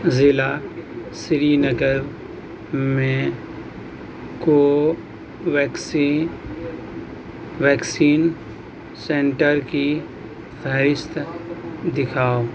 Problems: constant background noise